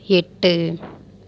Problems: none marked